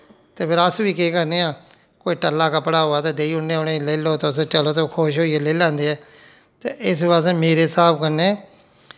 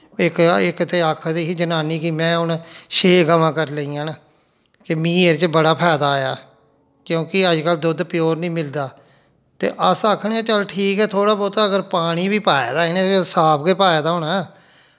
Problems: none marked